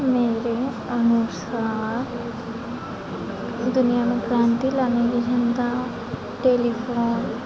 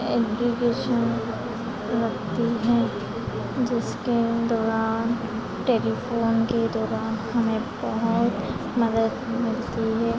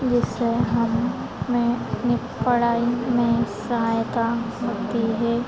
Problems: constant background noise, background conversations at intervals